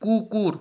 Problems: constant background noise